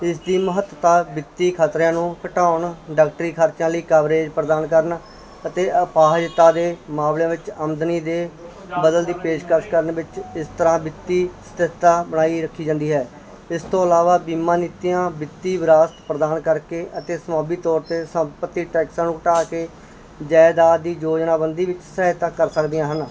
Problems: none marked